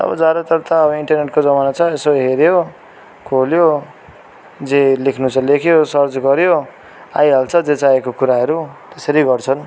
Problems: constant background noise, continuous background conversations